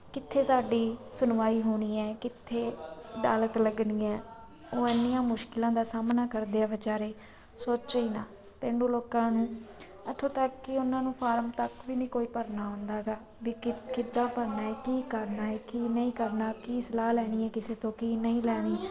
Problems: constant background noise, background conversations at intervals